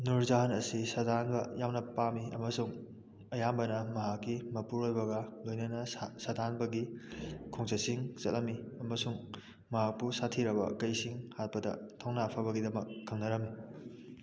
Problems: background conversations at intervals, low volume